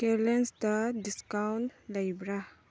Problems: low volume